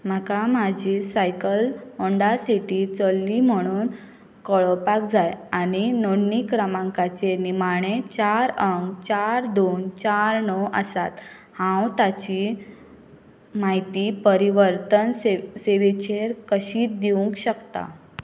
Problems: background sounds at intervals